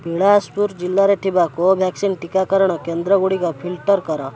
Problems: constant background noise, continuous background conversations